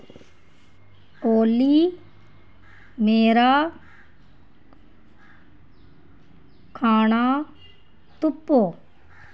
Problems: none marked